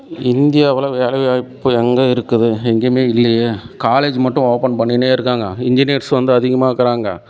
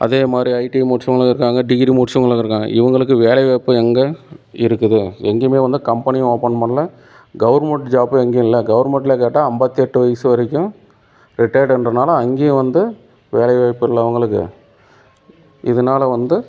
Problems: constant background noise